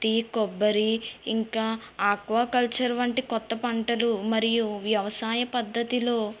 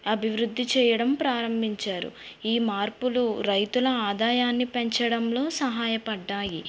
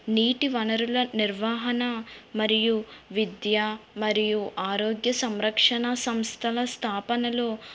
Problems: background sounds at intervals